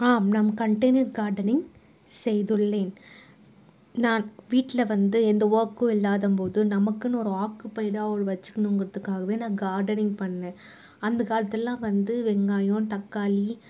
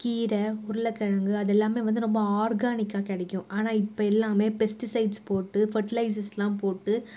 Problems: none marked